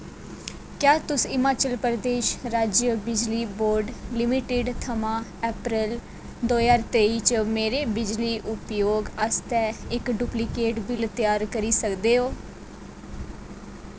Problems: none marked